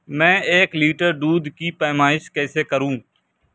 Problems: constant background noise